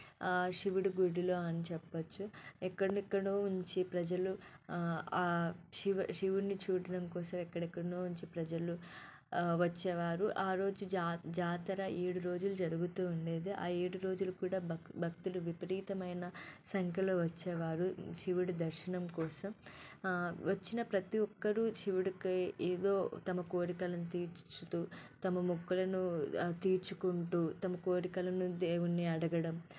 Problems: background sounds at intervals, low volume